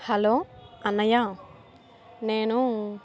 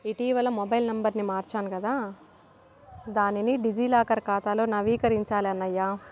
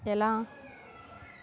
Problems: constant background noise